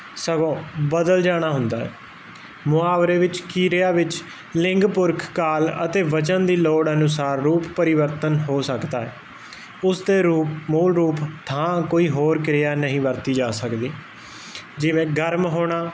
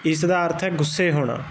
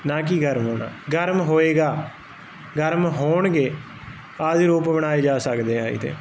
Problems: background sounds at intervals